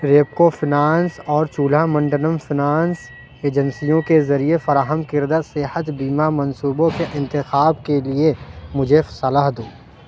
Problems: background sounds at intervals